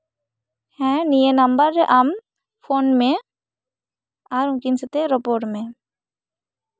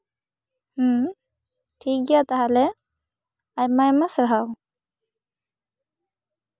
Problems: none marked